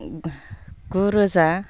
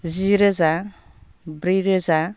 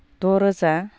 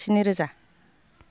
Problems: constant background noise